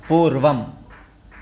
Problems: constant background noise